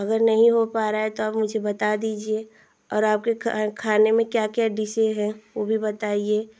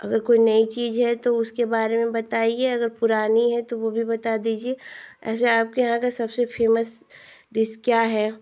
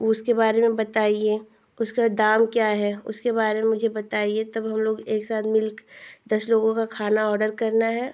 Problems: constant background noise